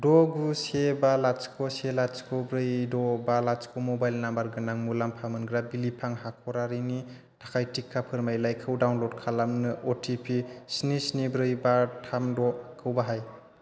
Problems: constant background noise